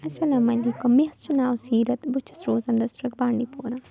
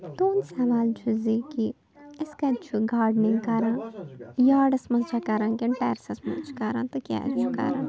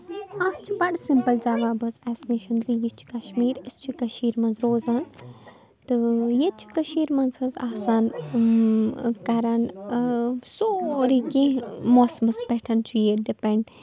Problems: constant background noise, low volume